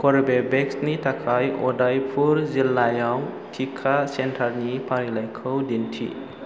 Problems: constant background noise